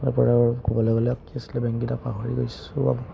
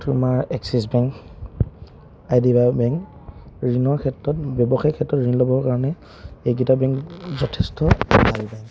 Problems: none marked